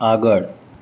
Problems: constant background noise